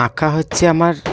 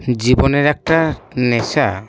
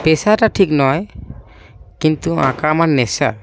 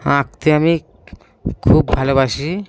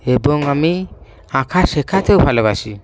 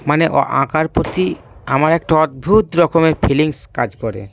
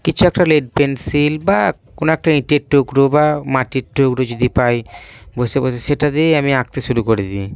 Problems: background sounds at intervals